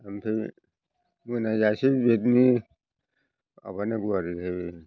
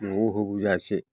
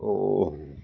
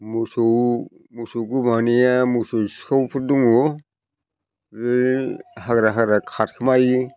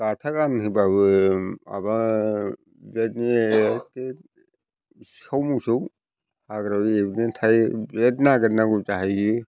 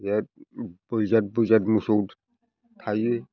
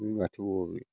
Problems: constant background noise